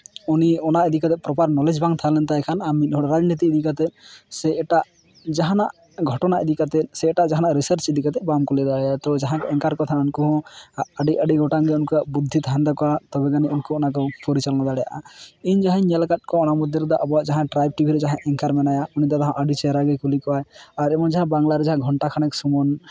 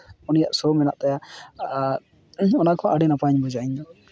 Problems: none marked